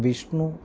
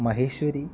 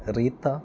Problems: none marked